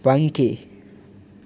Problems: none marked